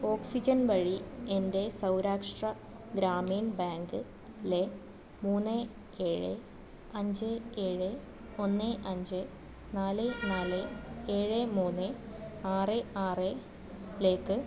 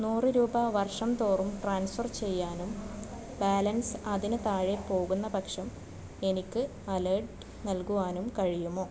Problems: background sounds at intervals